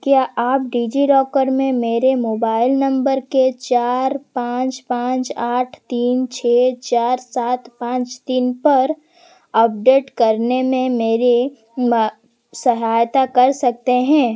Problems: constant background noise